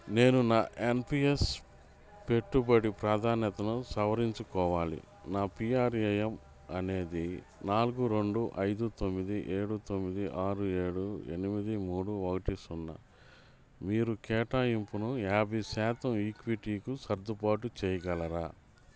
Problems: none marked